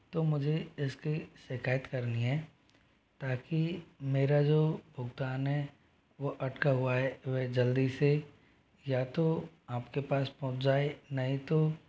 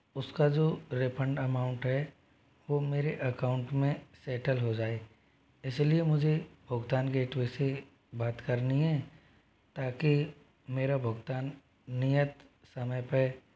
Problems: background sounds at intervals